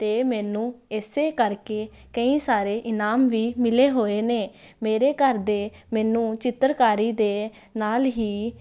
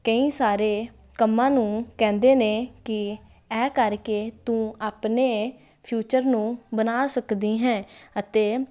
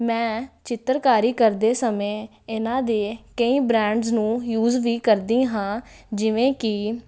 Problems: constant background noise